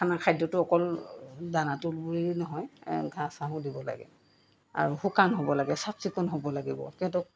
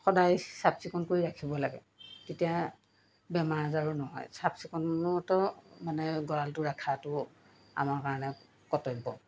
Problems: background conversations at intervals